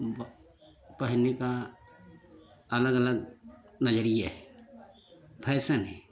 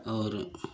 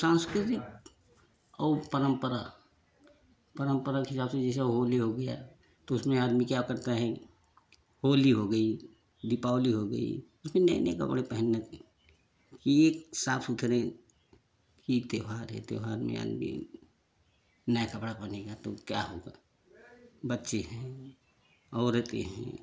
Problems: constant background noise